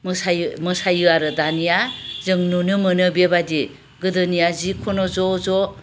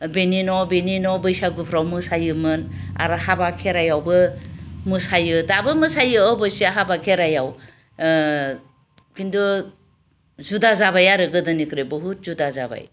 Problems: none marked